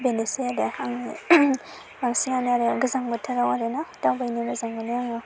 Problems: constant background noise